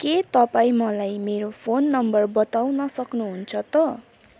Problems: none marked